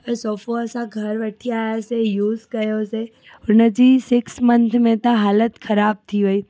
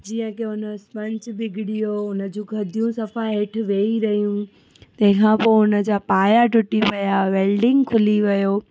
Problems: constant background noise